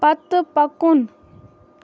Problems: none marked